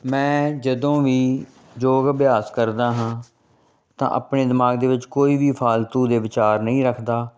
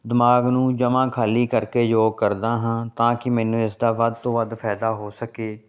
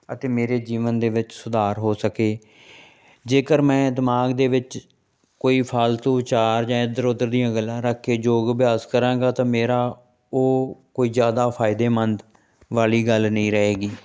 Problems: none marked